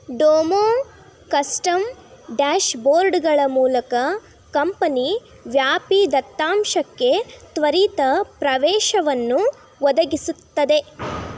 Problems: none marked